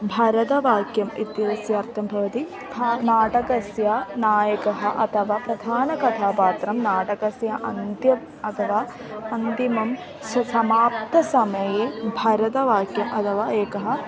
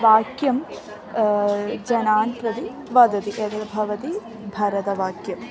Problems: constant background noise, continuous background conversations